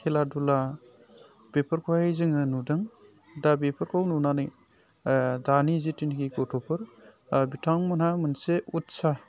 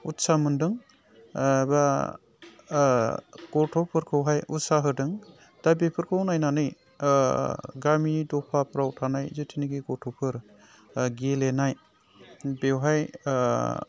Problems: low volume